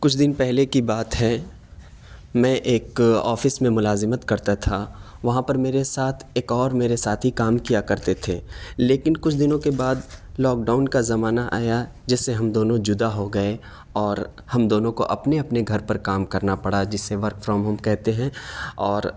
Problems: none marked